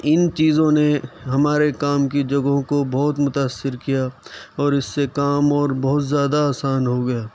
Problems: constant background noise